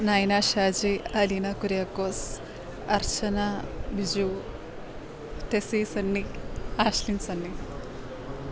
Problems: constant background noise